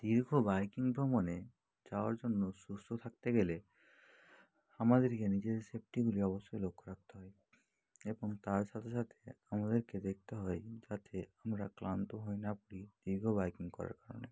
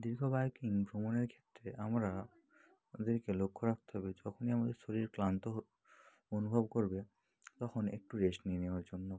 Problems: low volume